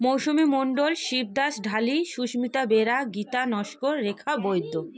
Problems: background conversations at intervals